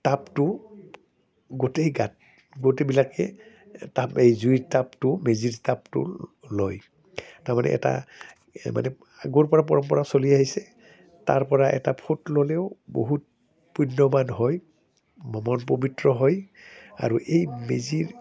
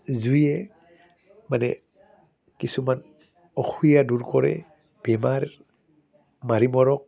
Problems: none marked